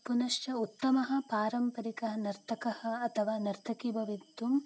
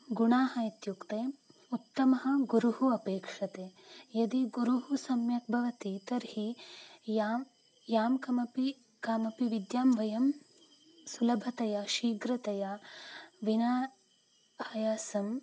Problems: none marked